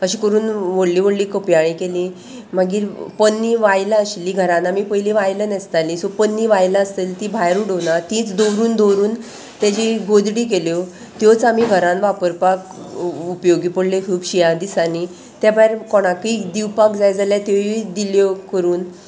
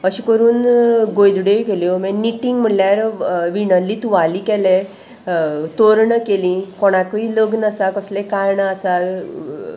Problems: none marked